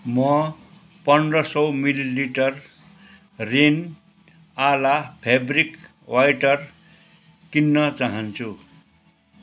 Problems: none marked